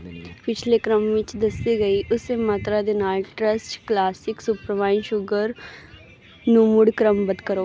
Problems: constant background noise